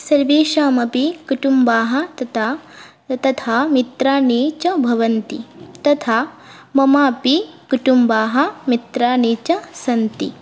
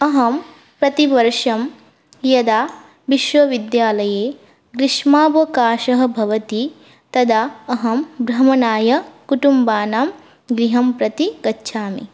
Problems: none marked